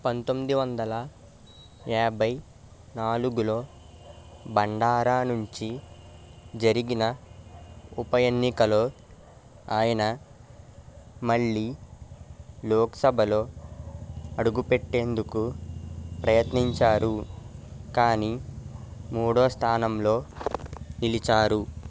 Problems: constant background noise